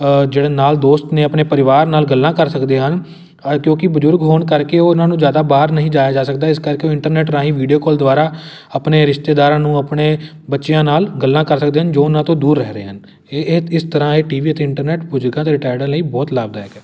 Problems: none marked